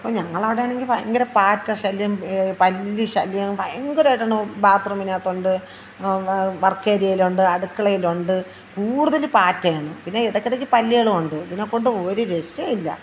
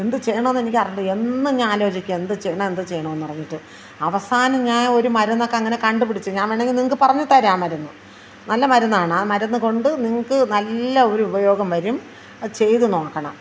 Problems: constant background noise